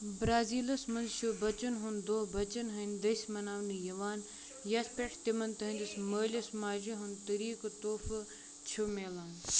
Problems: background conversations at intervals